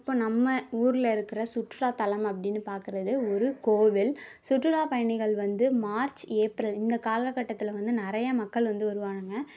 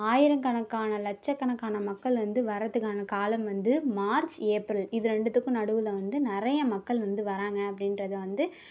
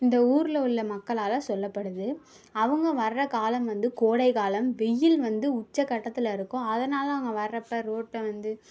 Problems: none marked